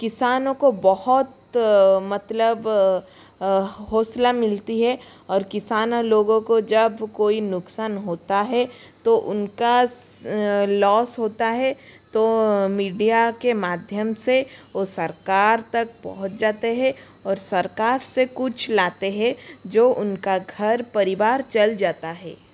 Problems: constant background noise